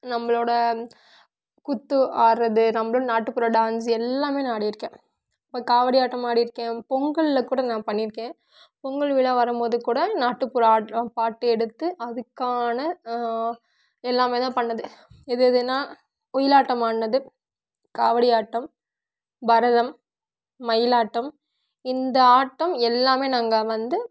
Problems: none marked